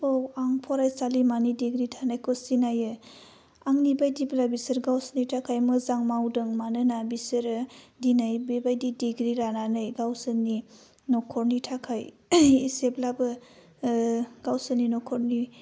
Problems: low volume